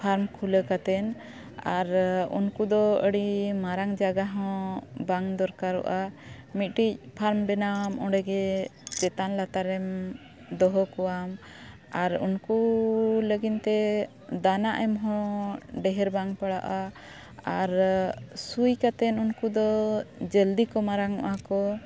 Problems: none marked